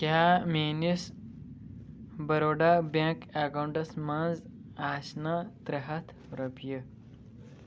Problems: low volume